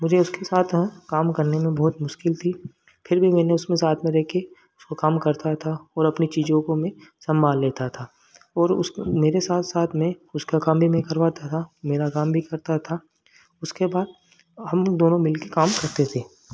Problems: none marked